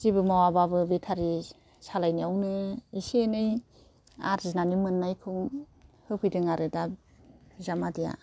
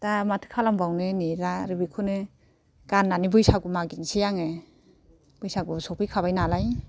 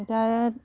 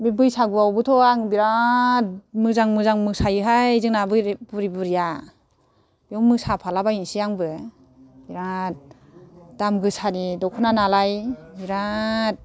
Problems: none marked